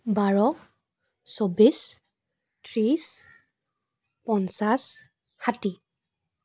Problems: none marked